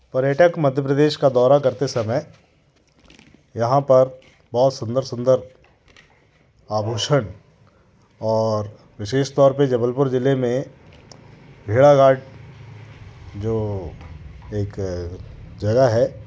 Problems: constant background noise